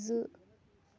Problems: low volume